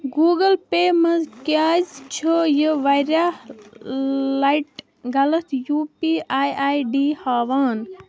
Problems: none marked